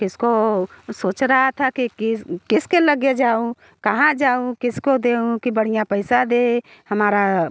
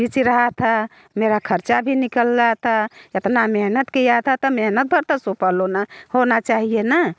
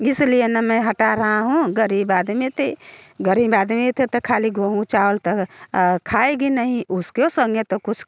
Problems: none marked